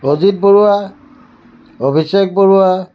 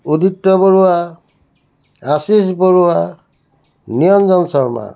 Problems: none marked